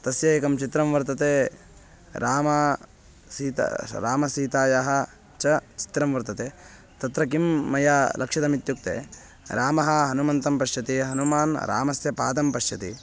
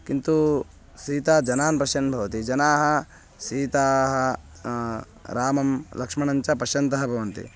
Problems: constant background noise